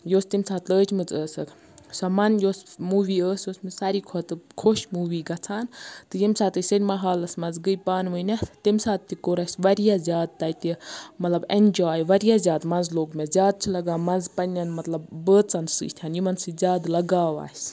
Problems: background sounds at intervals